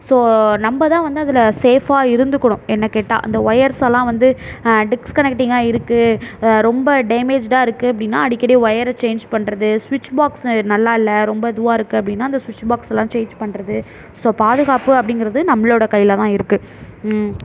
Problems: none marked